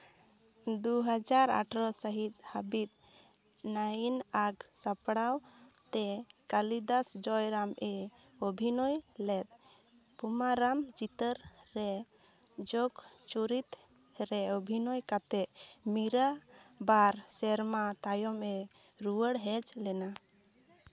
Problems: none marked